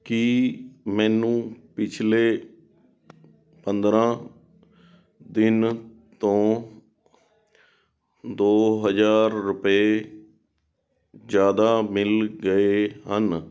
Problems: background sounds at intervals